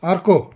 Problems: background conversations at intervals